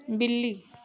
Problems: none marked